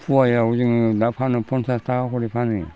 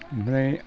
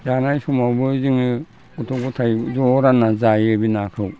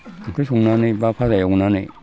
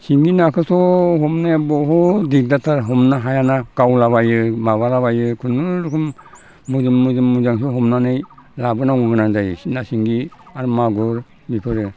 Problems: constant background noise